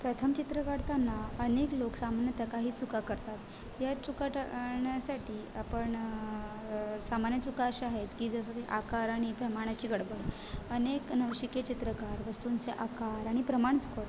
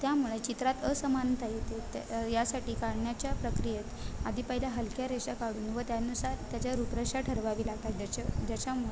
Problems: constant background noise, background conversations at intervals